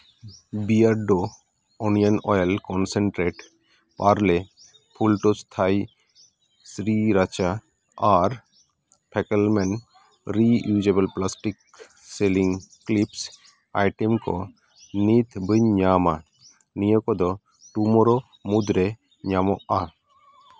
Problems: none marked